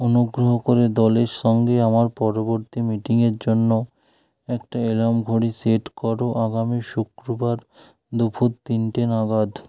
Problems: none marked